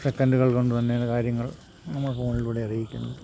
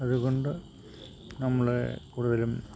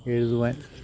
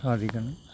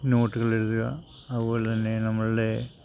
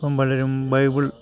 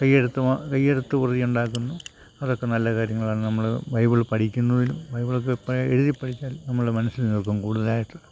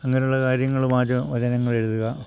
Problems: none marked